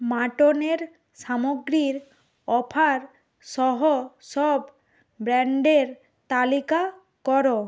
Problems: none marked